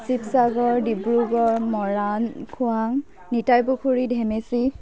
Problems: none marked